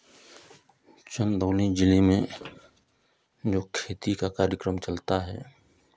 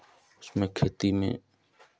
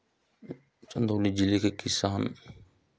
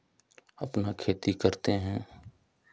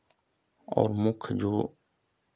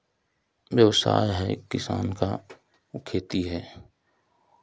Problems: none marked